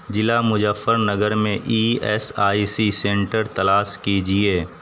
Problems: constant background noise